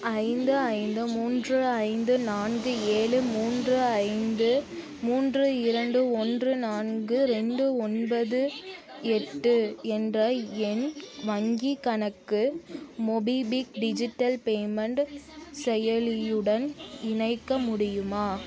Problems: continuous background conversations